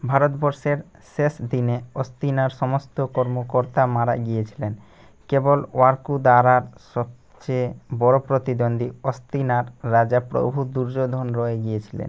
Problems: constant background noise